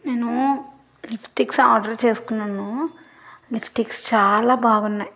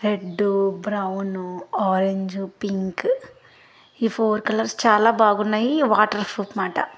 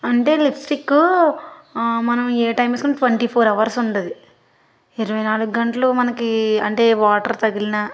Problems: background sounds at intervals